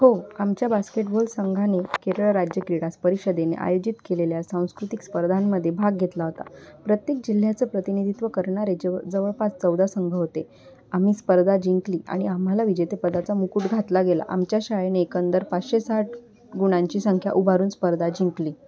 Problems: constant background noise